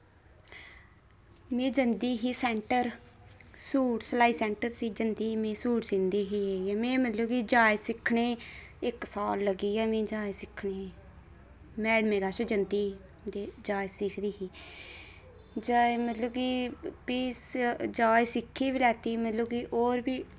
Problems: none marked